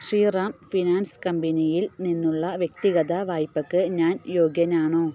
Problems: none marked